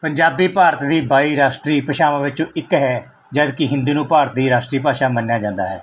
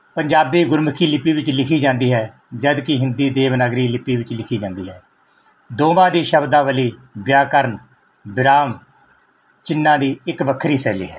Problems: none marked